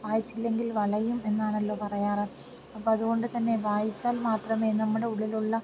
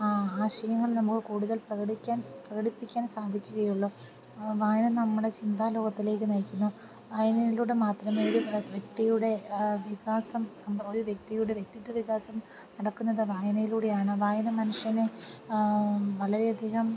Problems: background sounds at intervals, low volume